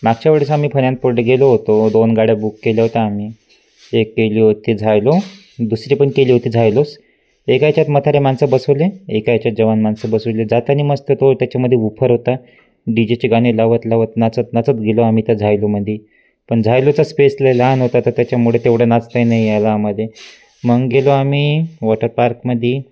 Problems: constant background noise